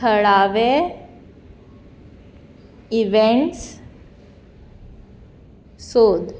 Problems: none marked